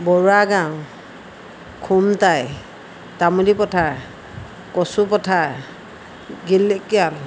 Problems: constant background noise